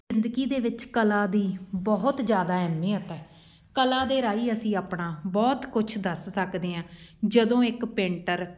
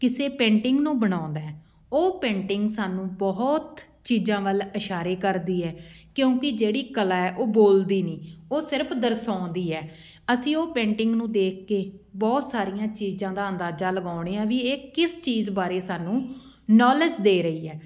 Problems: background sounds at intervals